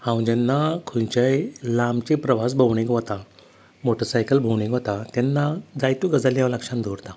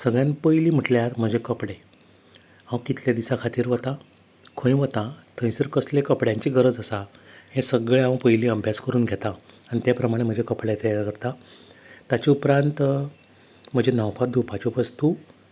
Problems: constant background noise